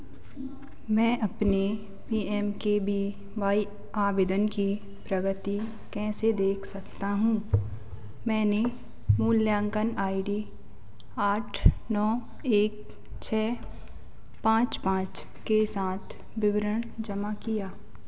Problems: none marked